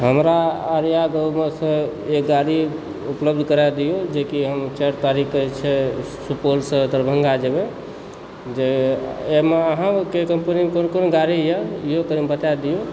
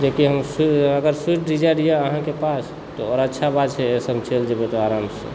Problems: constant background noise